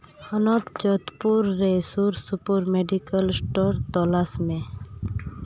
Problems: none marked